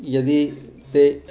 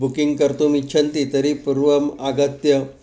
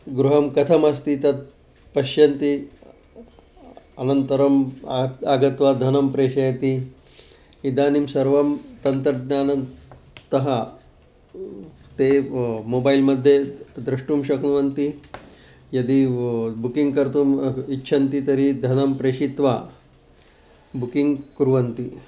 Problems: constant background noise